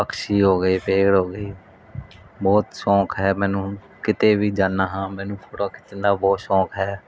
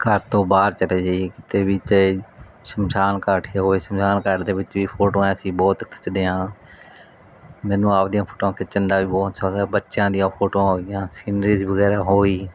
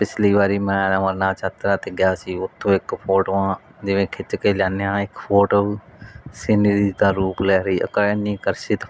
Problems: background sounds at intervals